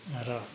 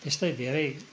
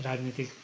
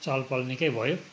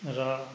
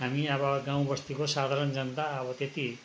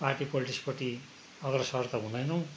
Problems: none marked